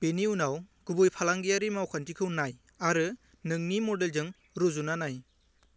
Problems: low volume